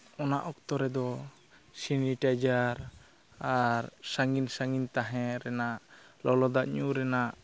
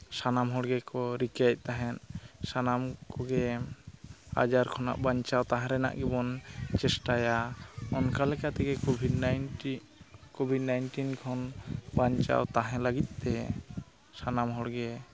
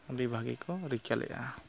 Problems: constant background noise